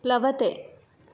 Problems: none marked